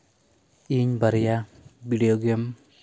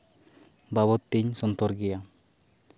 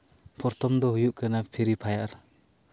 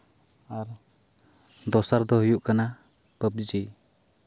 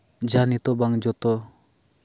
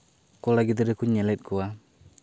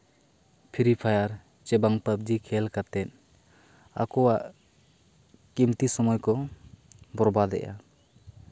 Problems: constant background noise